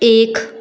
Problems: none marked